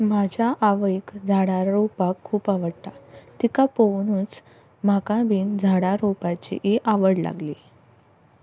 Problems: none marked